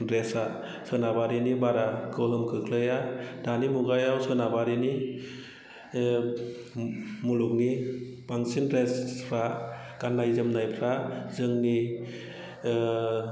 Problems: low volume